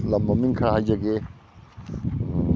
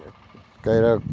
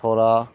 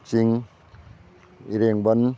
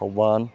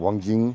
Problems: none marked